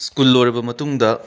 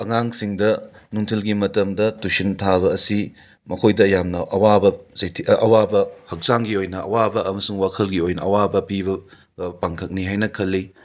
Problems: background sounds at intervals